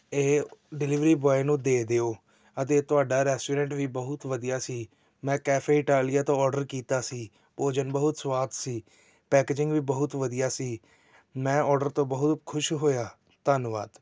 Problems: none marked